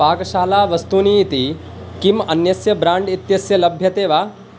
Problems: constant background noise